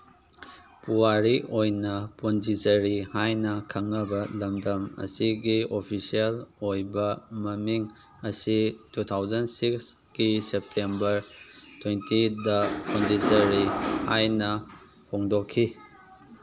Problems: background sounds at intervals